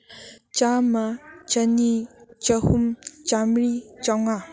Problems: background sounds at intervals